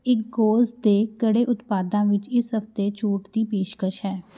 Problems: none marked